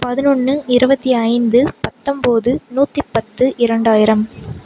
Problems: constant background noise